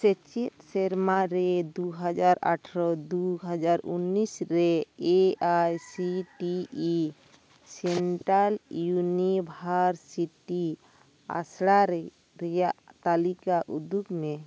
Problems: background sounds at intervals